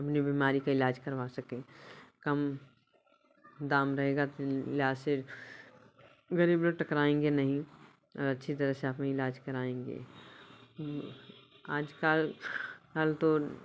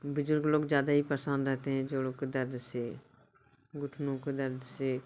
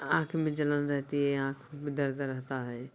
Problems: constant background noise